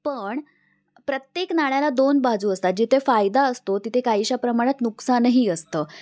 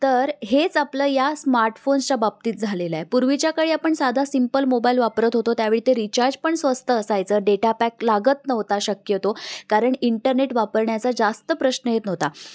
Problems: constant background noise